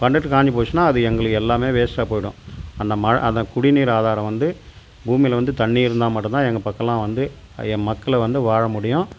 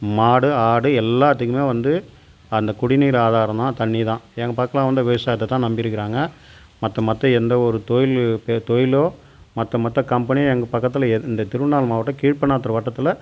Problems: constant background noise